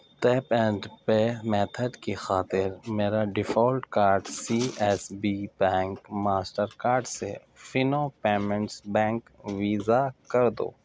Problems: none marked